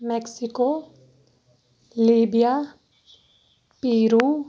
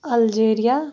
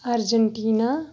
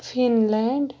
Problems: background sounds at intervals